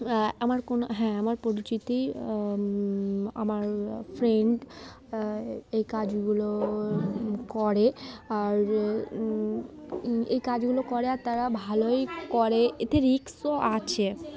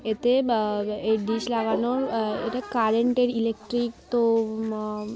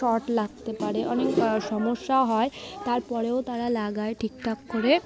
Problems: constant background noise, continuous background conversations